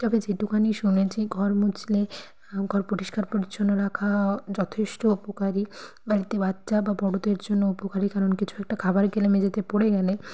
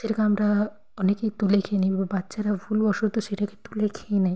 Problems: constant background noise